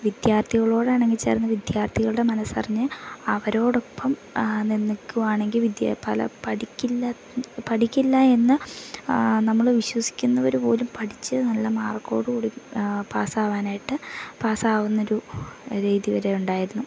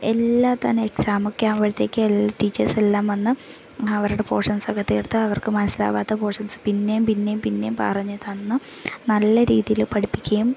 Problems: none marked